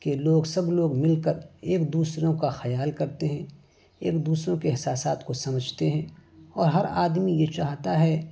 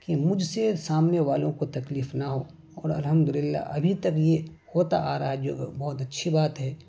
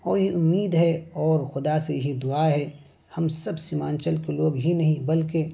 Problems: background sounds at intervals